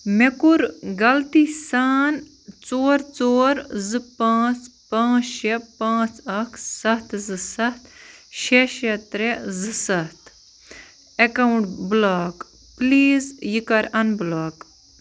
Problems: constant background noise